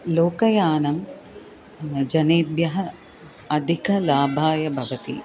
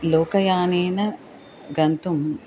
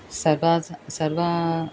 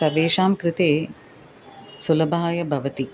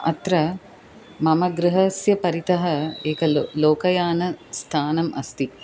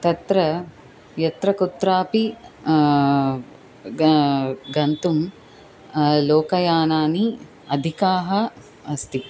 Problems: constant background noise